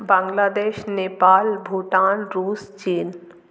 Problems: none marked